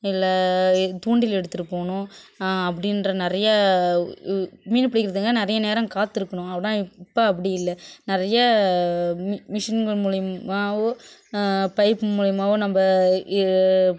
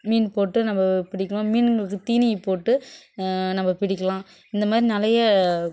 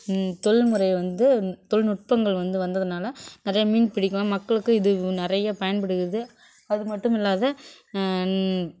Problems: none marked